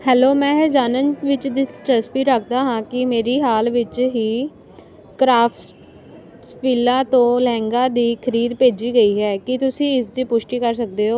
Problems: none marked